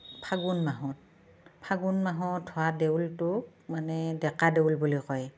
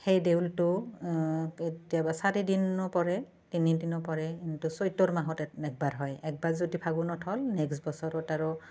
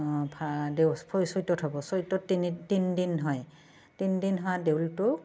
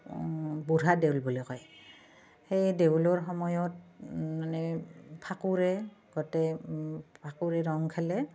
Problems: none marked